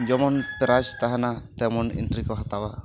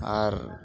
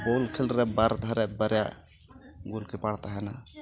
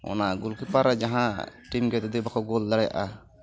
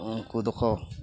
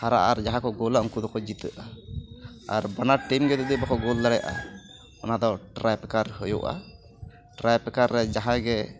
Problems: background sounds at intervals, background conversations at intervals